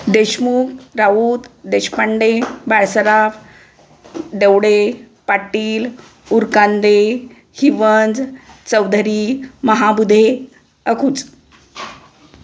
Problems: constant background noise